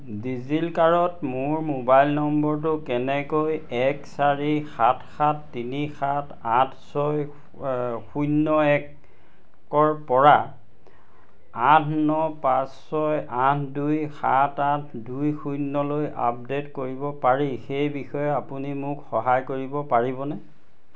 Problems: constant background noise